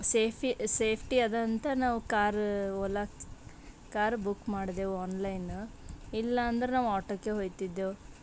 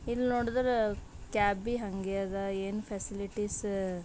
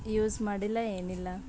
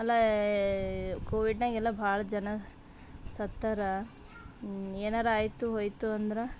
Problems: background sounds at intervals